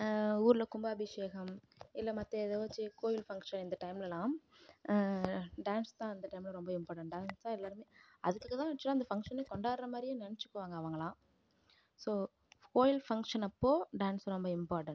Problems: low volume